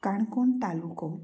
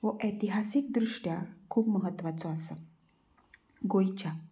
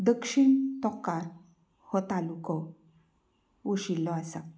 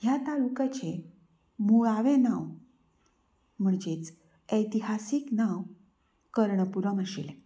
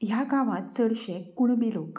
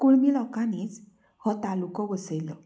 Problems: background sounds at intervals, low volume